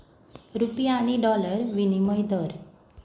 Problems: background sounds at intervals